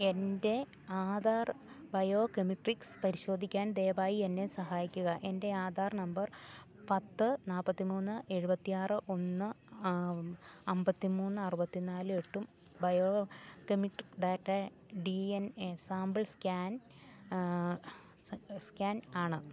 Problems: none marked